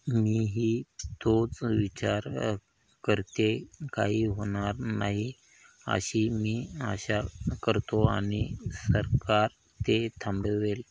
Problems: none marked